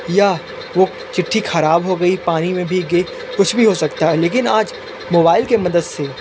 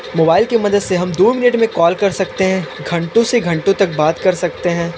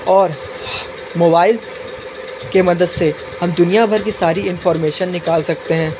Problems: constant background noise